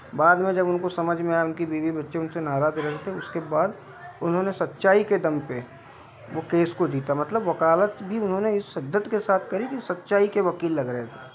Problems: background sounds at intervals